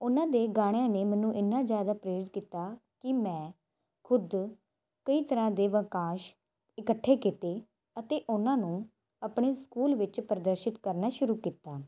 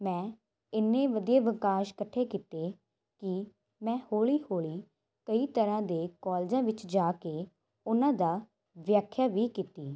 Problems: constant background noise